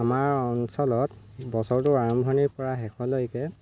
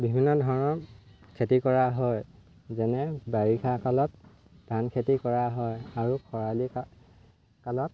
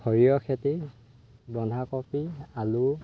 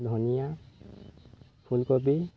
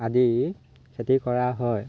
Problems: constant background noise, low volume